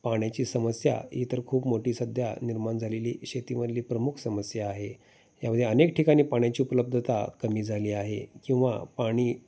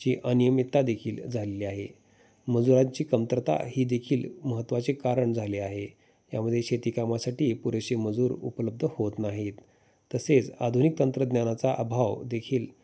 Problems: background sounds at intervals